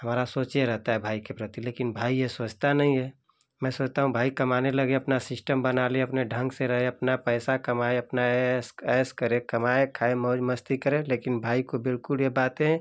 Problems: none marked